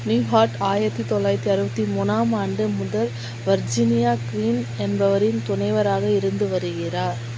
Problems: constant background noise